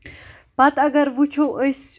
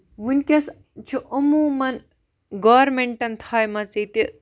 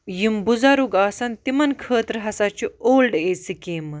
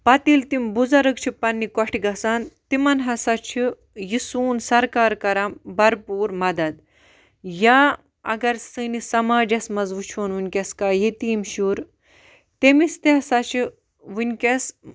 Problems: none marked